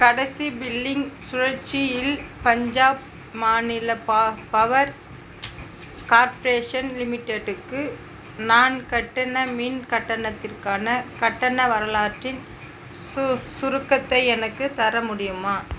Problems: constant background noise